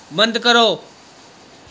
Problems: background sounds at intervals, background conversations at intervals